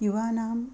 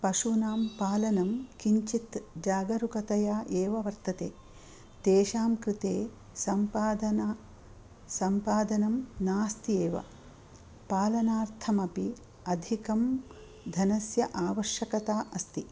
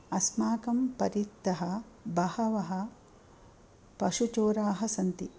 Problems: none marked